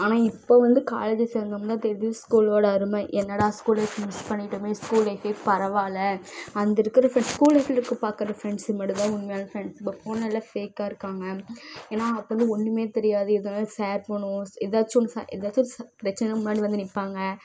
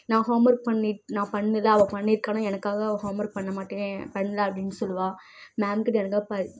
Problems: background sounds at intervals